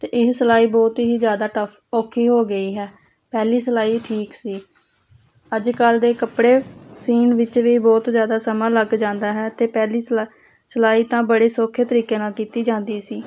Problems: constant background noise